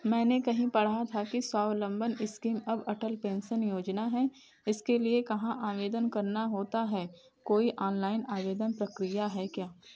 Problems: none marked